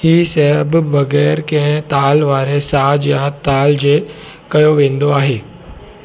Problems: background sounds at intervals